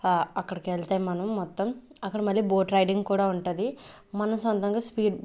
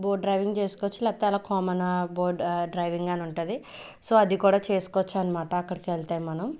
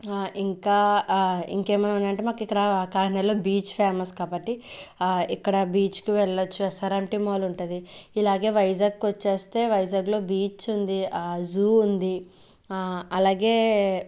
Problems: none marked